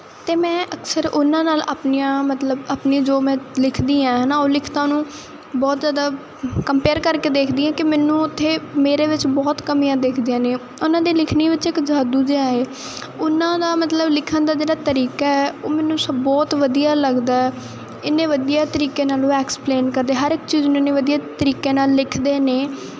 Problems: none marked